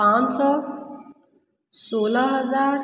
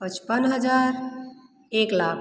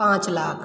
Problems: none marked